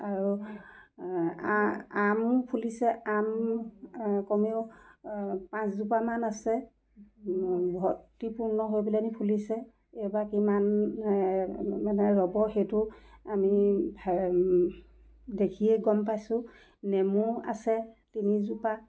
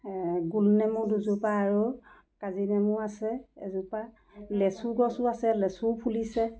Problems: background sounds at intervals